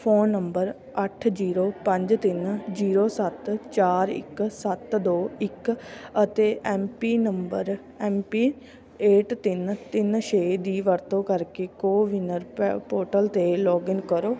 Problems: constant background noise